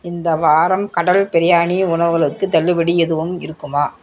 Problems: constant background noise